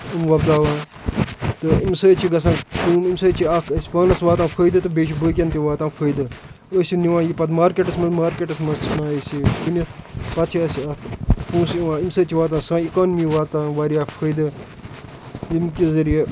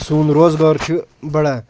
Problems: constant background noise